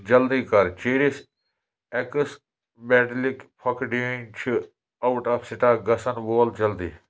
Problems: constant background noise